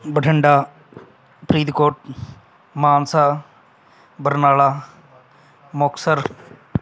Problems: none marked